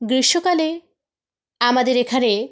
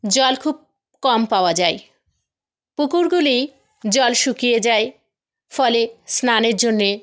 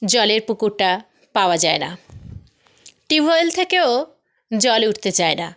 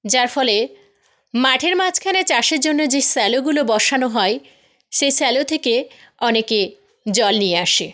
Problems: none marked